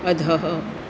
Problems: constant background noise